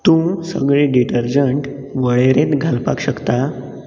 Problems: background sounds at intervals